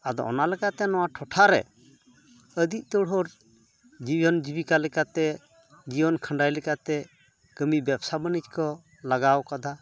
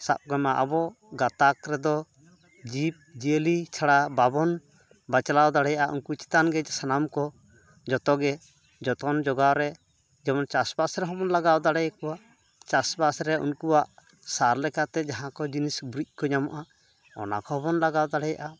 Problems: none marked